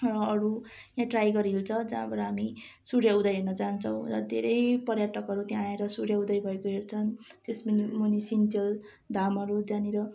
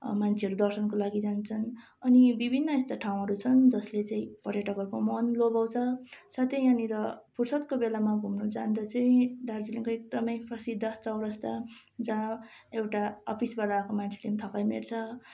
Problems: constant background noise